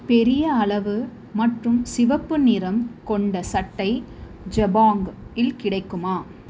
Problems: constant background noise